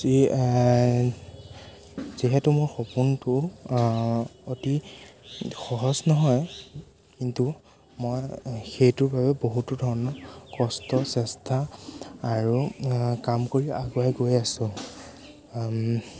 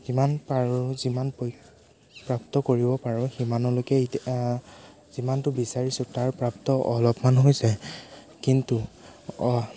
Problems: constant background noise, background conversations at intervals